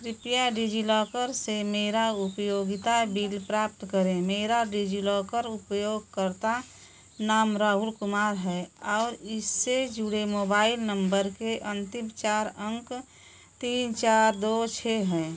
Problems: none marked